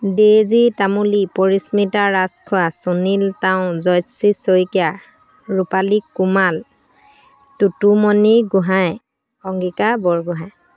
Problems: constant background noise